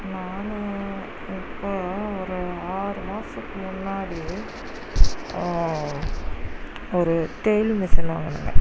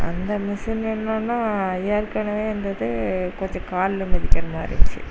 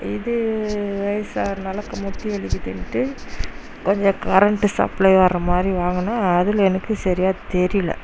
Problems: background sounds at intervals